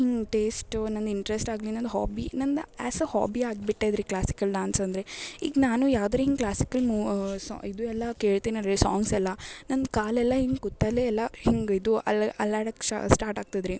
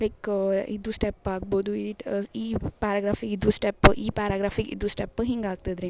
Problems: background sounds at intervals